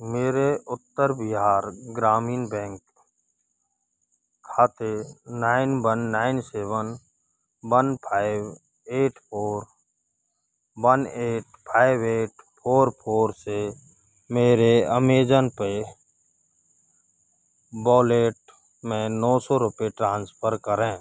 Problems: constant background noise